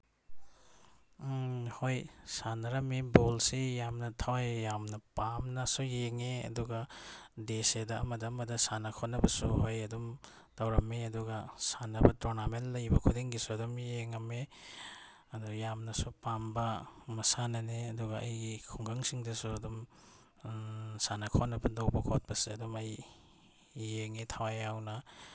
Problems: none marked